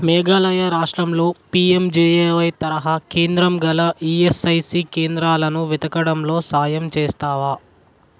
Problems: constant background noise